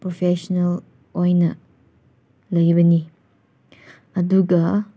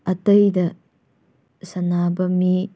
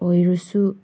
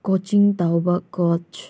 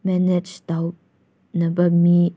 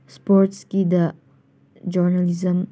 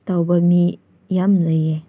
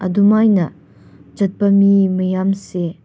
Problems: none marked